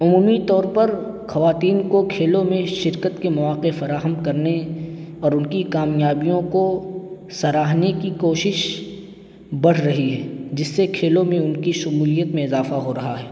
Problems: constant background noise